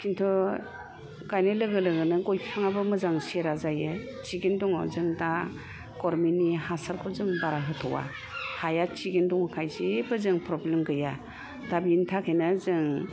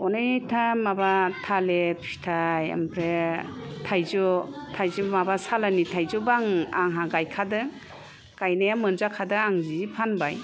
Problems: none marked